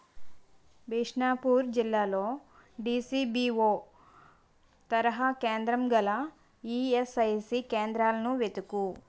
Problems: constant background noise